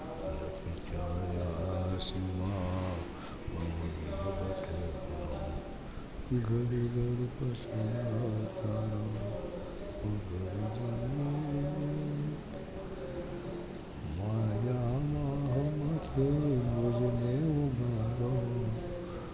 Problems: background conversations at intervals, low volume